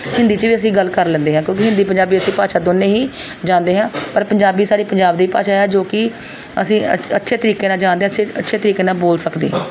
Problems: background sounds at intervals